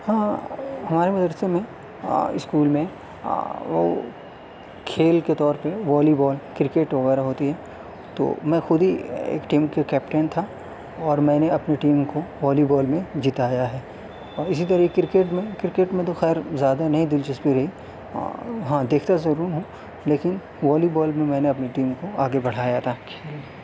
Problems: none marked